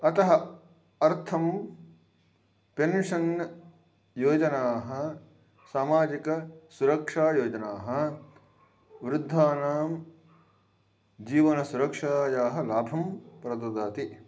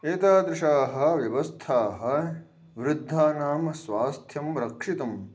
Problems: none marked